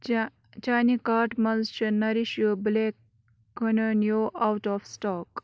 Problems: background sounds at intervals